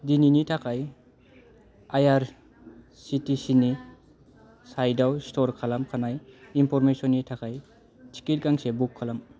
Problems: low volume